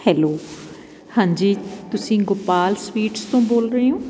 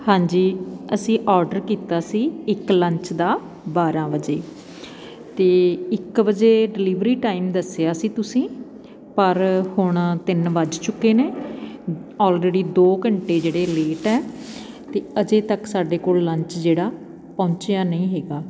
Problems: constant background noise